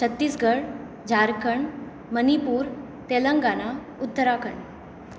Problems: constant background noise